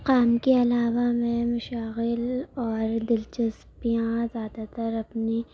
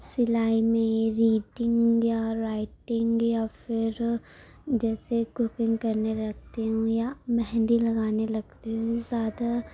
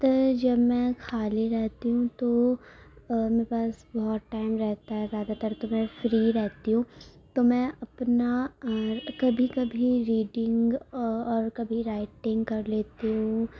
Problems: constant background noise, low volume